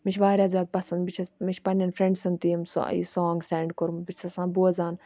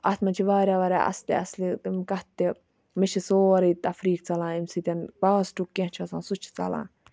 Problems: background sounds at intervals